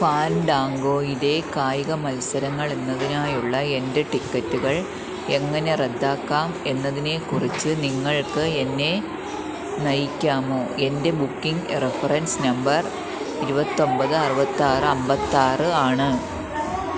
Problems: constant background noise